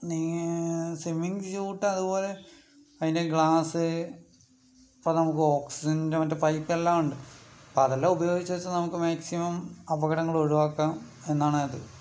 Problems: background sounds at intervals, low volume